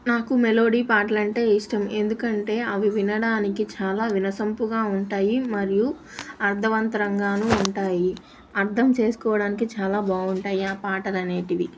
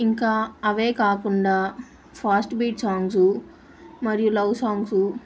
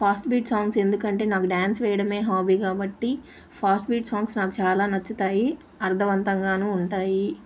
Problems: constant background noise